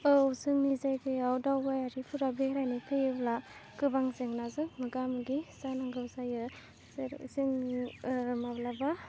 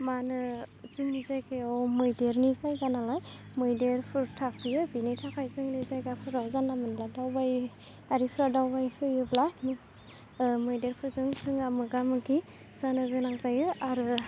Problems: constant background noise